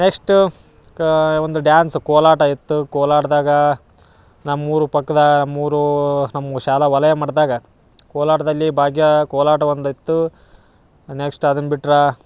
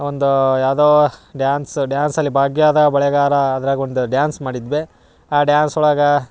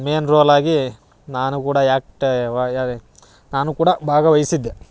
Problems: none marked